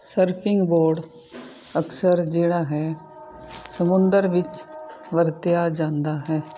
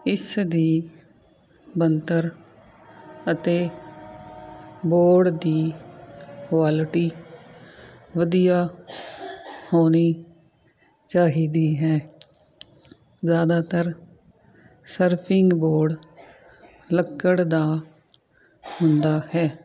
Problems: constant background noise